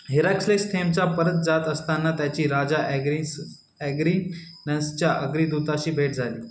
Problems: constant background noise